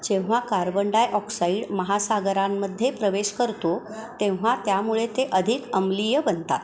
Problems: constant background noise, continuous background conversations